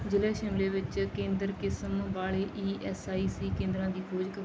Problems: background sounds at intervals